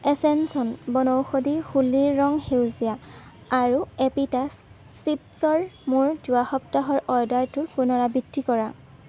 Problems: constant background noise